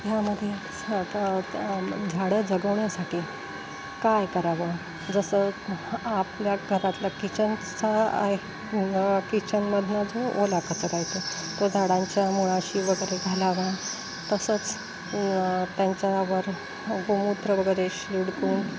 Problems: constant background noise